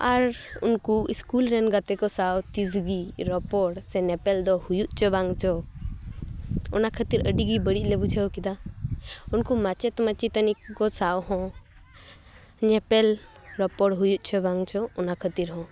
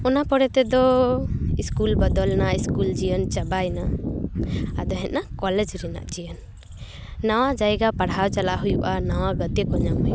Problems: none marked